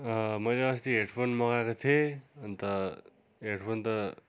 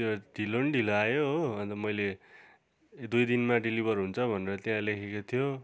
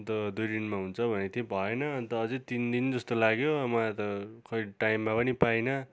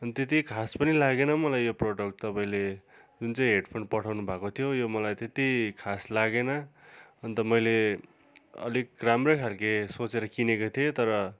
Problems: continuous background conversations